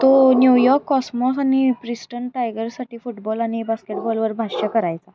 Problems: constant background noise